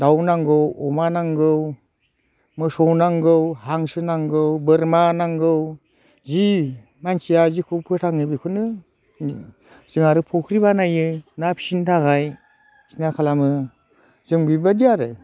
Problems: none marked